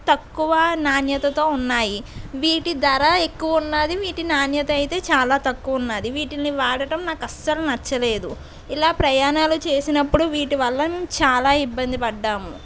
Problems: constant background noise